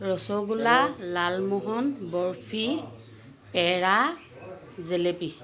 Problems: constant background noise